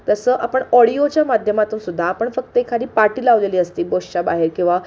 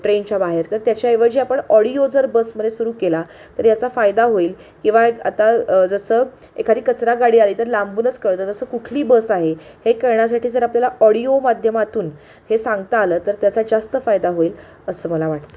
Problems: background sounds at intervals